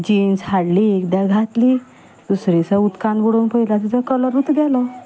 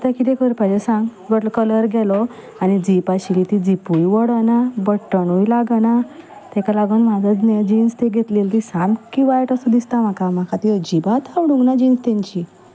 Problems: constant background noise, background conversations at intervals